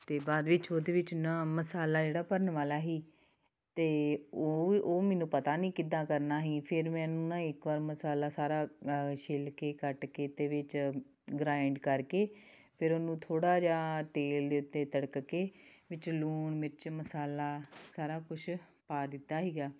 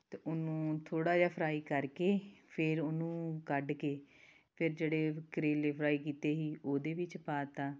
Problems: background sounds at intervals